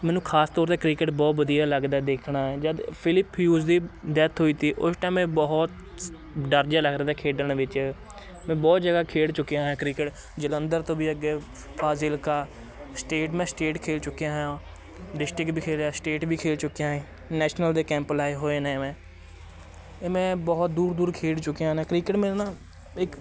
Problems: constant background noise, continuous background conversations